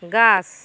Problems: constant background noise